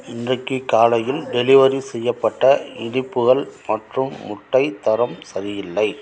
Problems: none marked